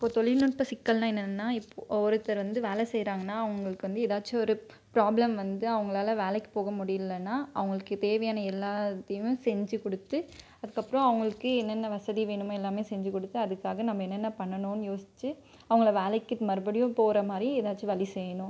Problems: none marked